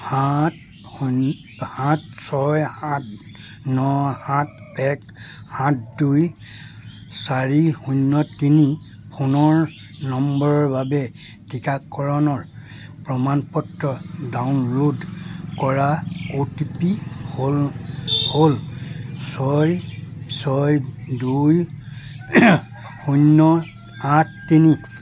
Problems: background sounds at intervals